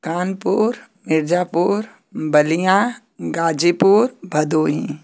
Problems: constant background noise